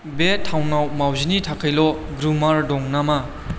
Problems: constant background noise